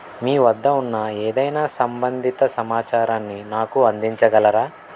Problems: constant background noise